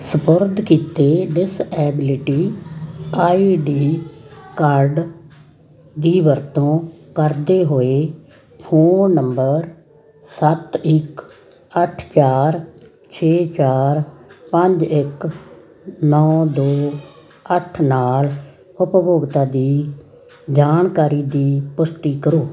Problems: constant background noise, background conversations at intervals